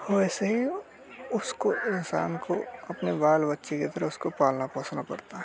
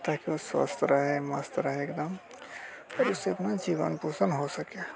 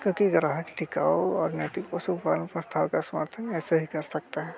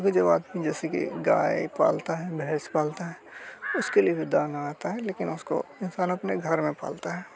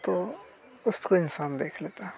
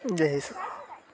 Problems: constant background noise